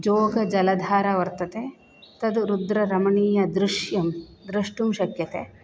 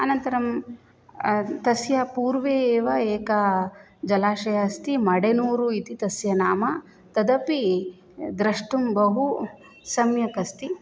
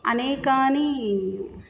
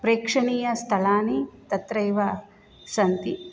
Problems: none marked